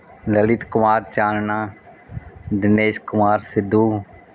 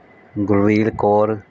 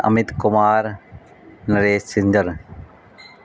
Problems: none marked